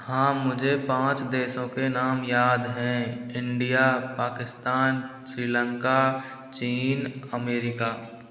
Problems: constant background noise